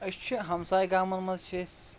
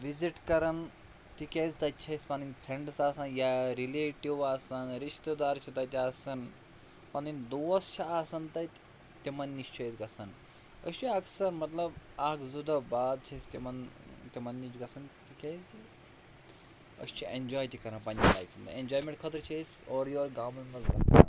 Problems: constant background noise, low volume